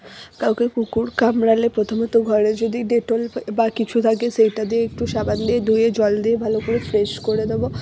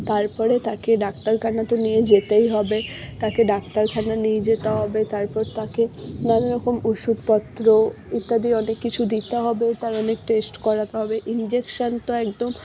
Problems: background sounds at intervals